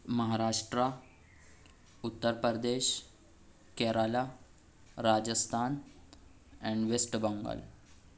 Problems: none marked